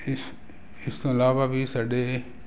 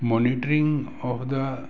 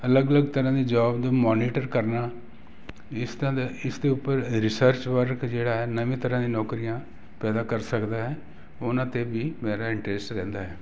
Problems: none marked